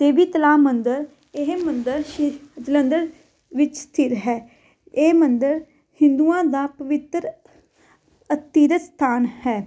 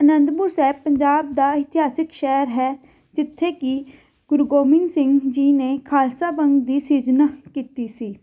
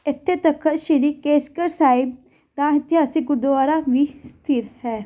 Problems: background sounds at intervals